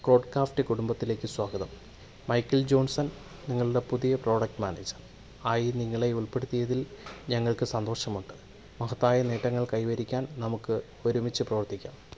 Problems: background sounds at intervals, low volume